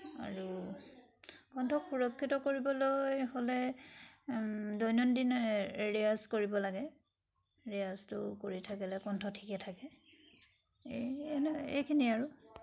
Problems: constant background noise